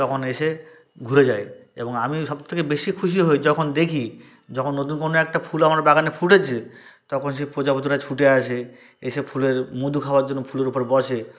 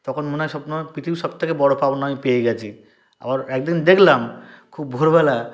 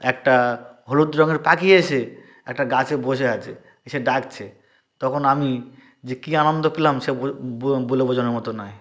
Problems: none marked